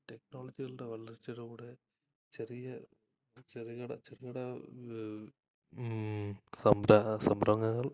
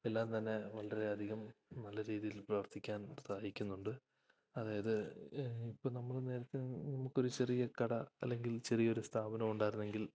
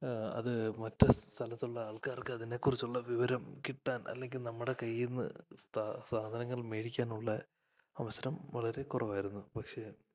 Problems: low volume